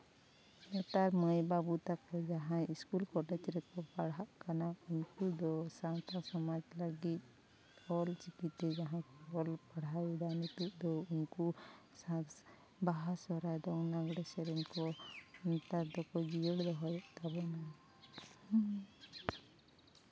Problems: constant background noise, background conversations at intervals, low volume